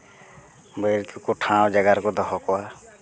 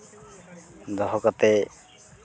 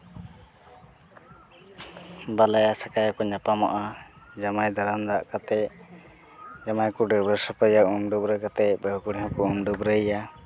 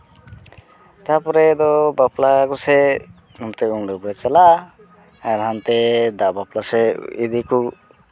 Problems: constant background noise